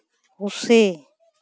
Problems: none marked